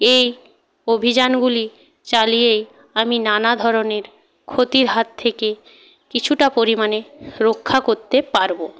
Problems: background conversations at intervals